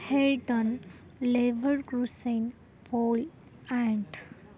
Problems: constant background noise, background conversations at intervals